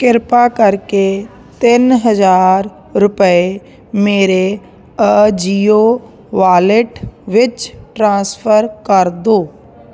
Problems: constant background noise